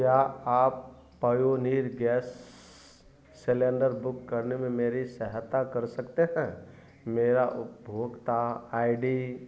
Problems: none marked